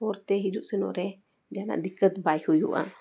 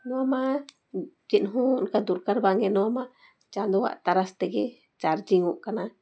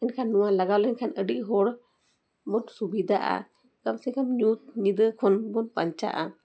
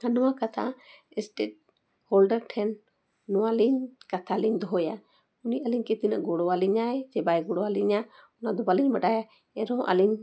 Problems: background sounds at intervals